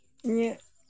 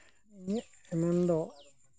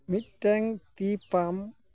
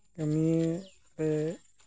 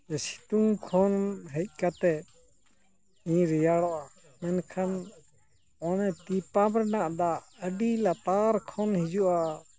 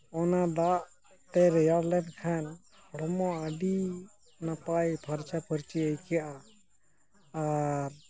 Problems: low volume